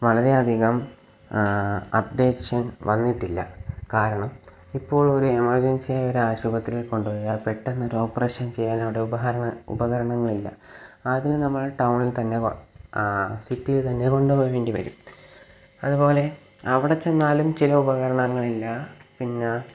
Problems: low volume